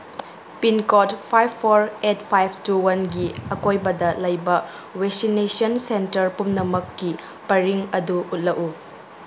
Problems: background sounds at intervals